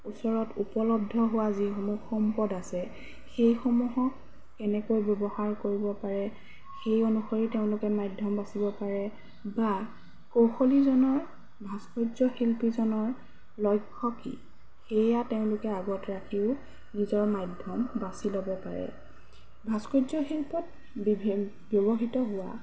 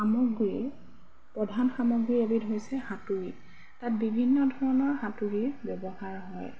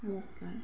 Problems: background sounds at intervals